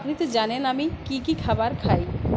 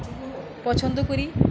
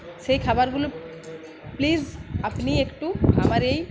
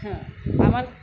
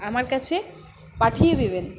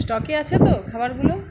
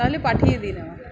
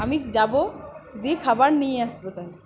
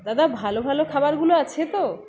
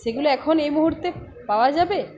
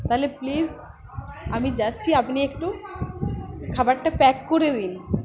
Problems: continuous background conversations